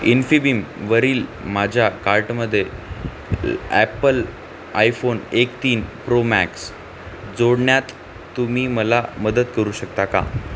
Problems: constant background noise